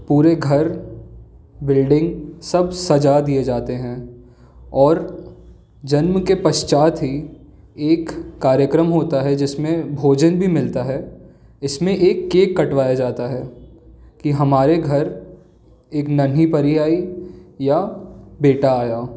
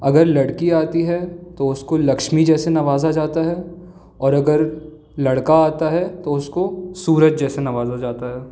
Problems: background sounds at intervals